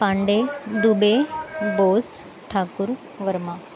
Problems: constant background noise, continuous background conversations